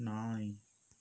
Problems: low volume